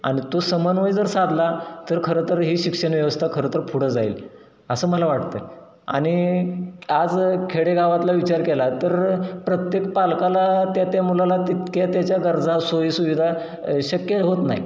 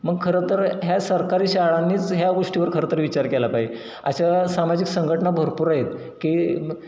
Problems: none marked